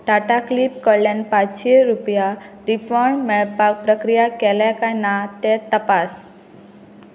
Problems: none marked